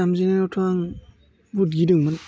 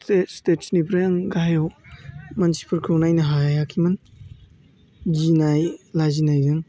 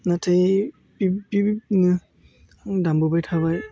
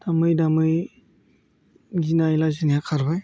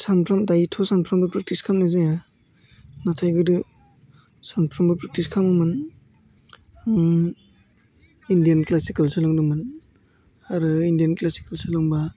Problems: constant background noise